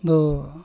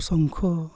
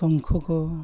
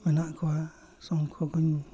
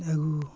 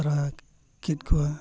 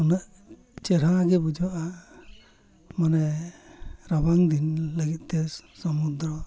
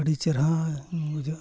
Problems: constant background noise, low volume